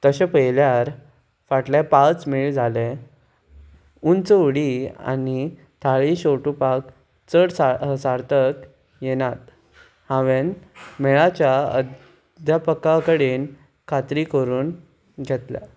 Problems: none marked